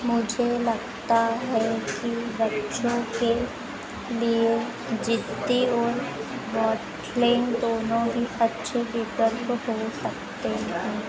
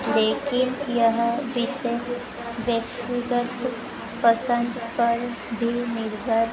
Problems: none marked